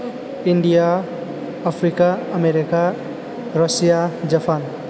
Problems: none marked